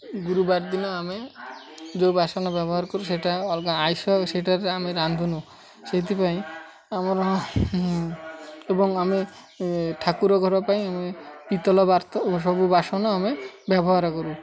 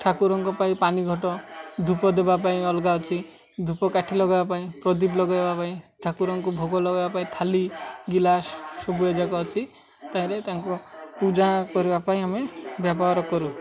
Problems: constant background noise, continuous background conversations